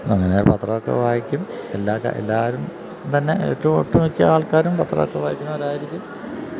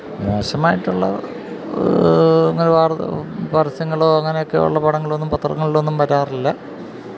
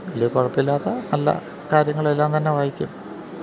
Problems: background sounds at intervals